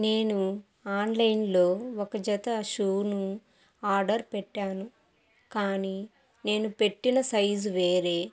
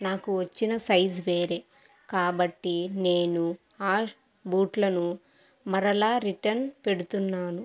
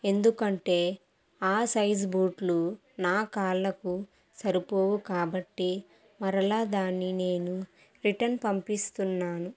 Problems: none marked